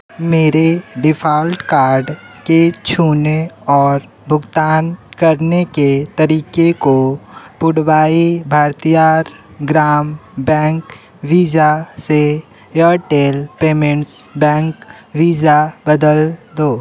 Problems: none marked